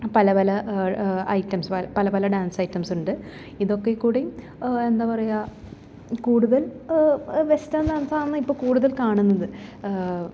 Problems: background sounds at intervals